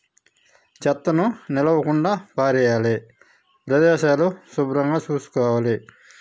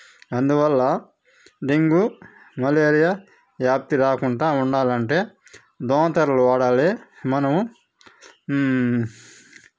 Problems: none marked